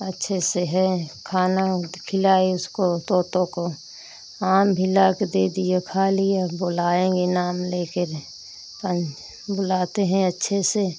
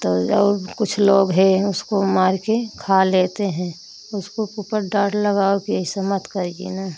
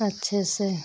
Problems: constant background noise